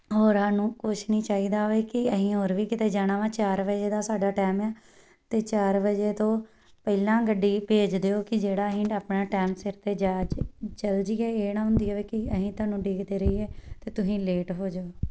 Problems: background sounds at intervals